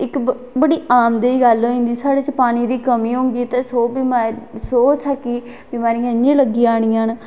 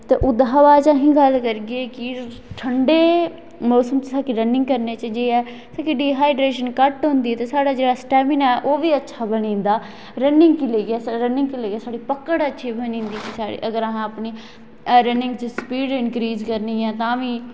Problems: echo